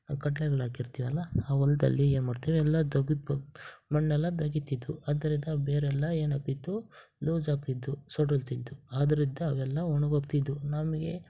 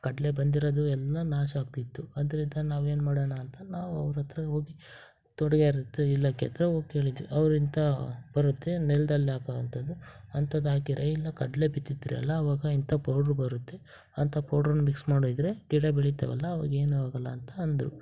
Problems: none marked